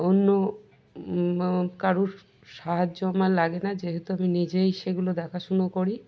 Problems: background sounds at intervals